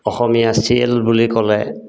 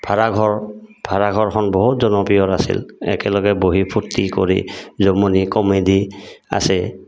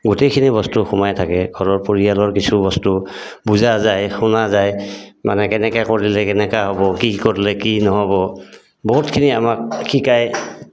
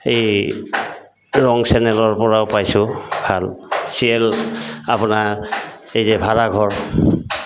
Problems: constant background noise